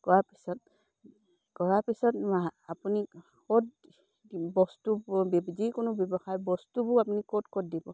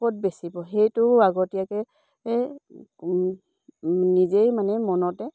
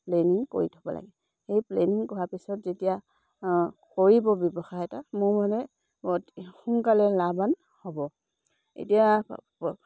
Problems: none marked